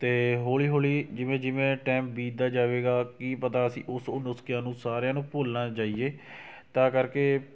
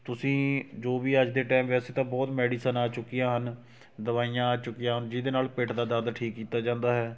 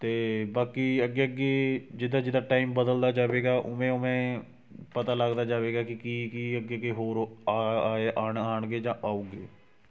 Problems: none marked